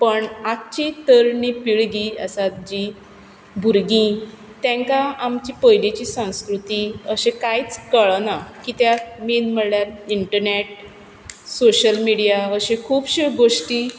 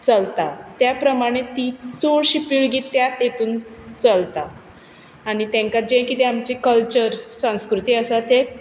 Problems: background sounds at intervals